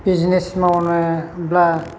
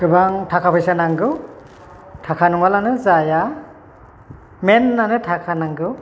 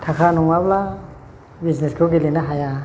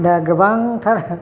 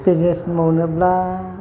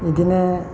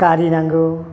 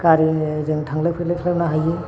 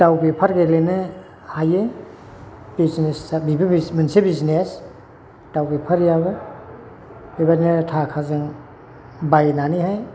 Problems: constant background noise